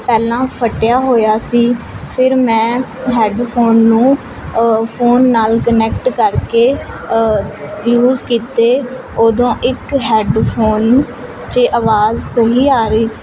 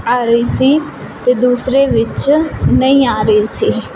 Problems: constant background noise